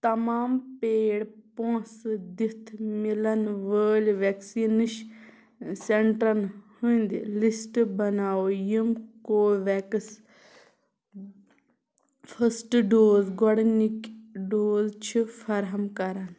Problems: none marked